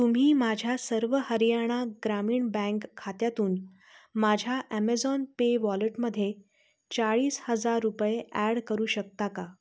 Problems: constant background noise